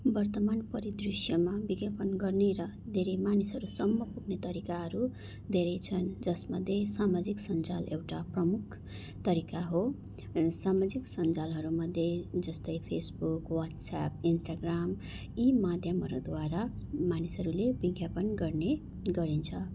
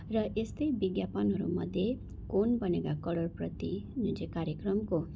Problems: none marked